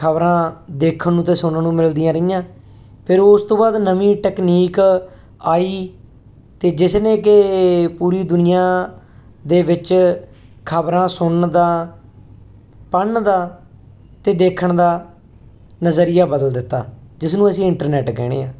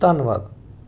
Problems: none marked